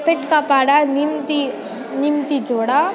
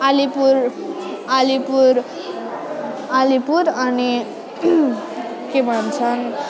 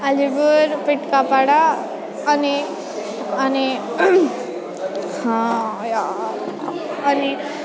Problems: continuous background conversations